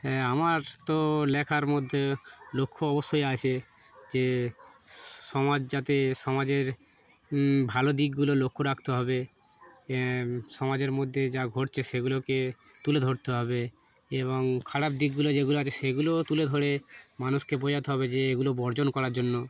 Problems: none marked